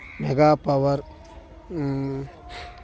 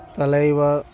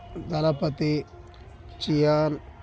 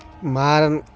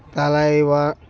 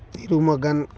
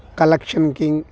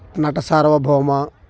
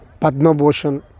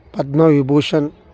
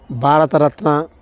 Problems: background sounds at intervals